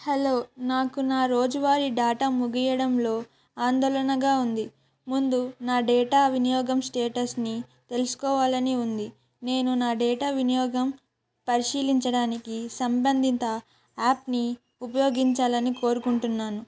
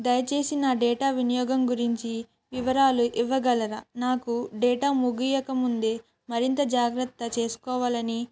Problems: none marked